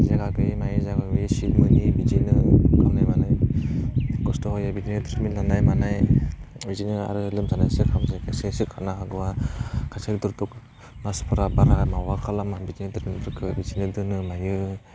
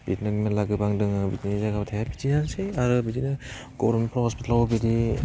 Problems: low volume